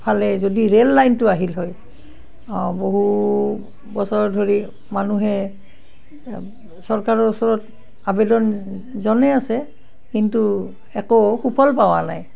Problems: none marked